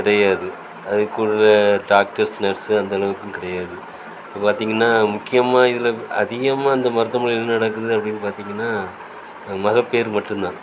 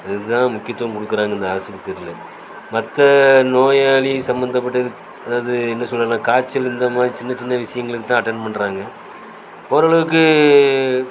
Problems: constant background noise